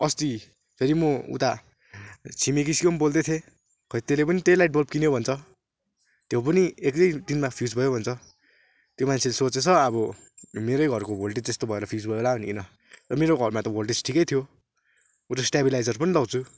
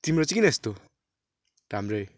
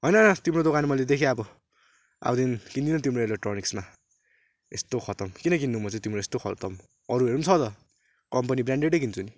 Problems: none marked